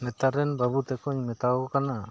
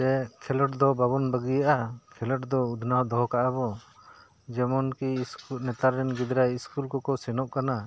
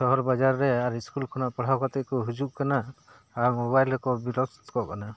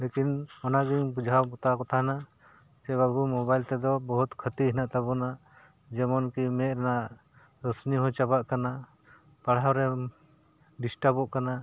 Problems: background sounds at intervals, background conversations at intervals